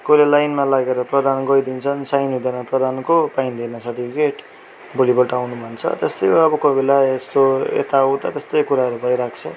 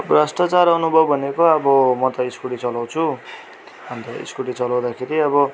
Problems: none marked